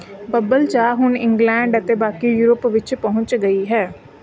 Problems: none marked